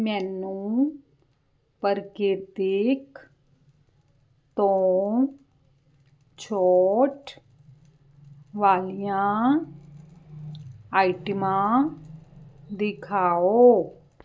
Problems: none marked